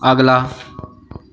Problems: background conversations at intervals